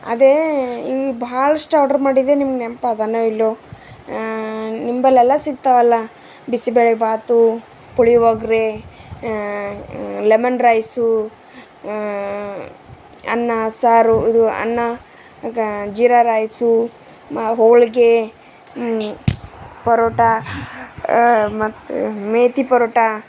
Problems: background sounds at intervals